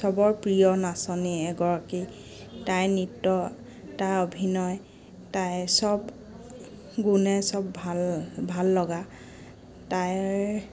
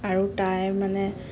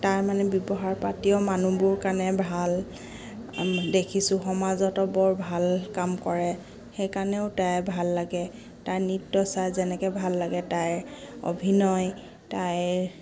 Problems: none marked